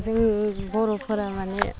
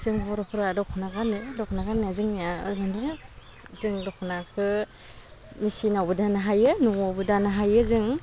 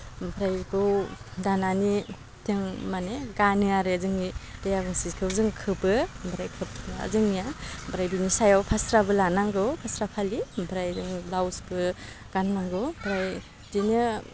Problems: low volume